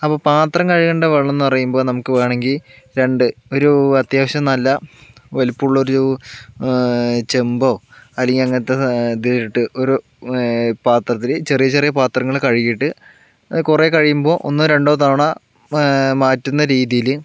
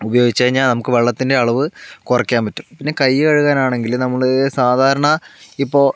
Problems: none marked